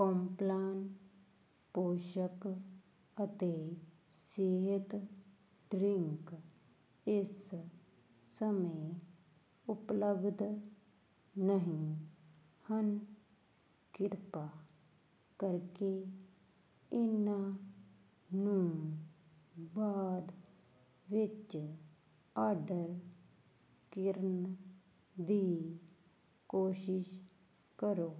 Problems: constant background noise